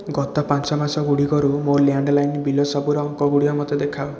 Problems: continuous background conversations